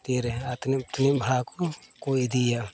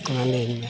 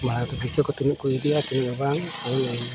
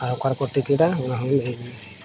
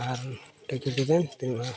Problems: constant background noise, background conversations at intervals